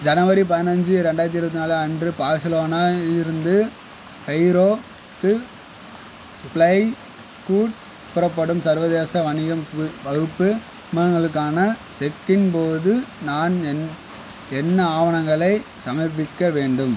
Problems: constant background noise